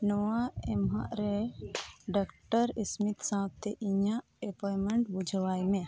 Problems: none marked